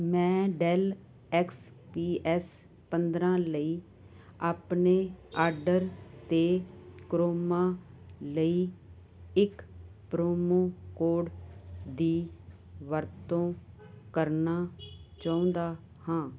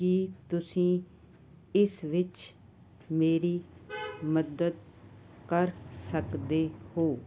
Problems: none marked